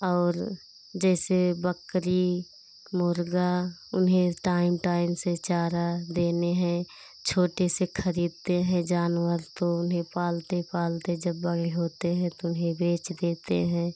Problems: constant background noise